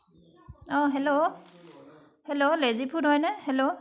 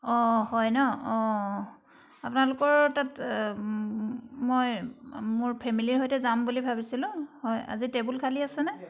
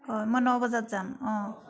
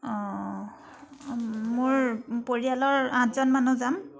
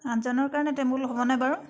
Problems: none marked